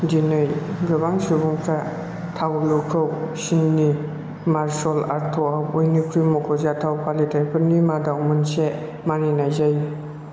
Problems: constant background noise